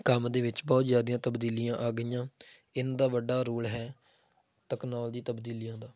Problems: background sounds at intervals